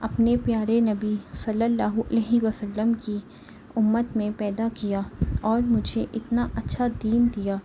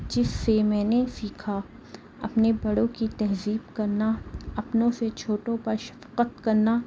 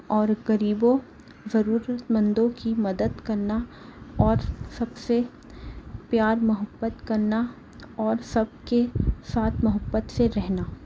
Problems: background sounds at intervals